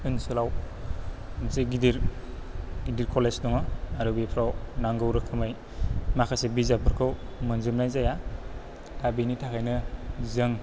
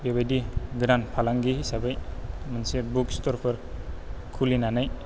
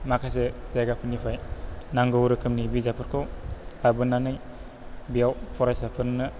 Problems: low volume